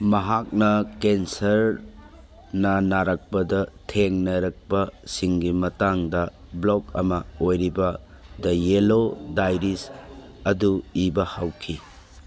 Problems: background sounds at intervals